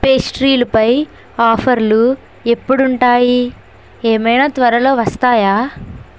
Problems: constant background noise